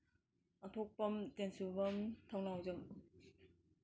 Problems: none marked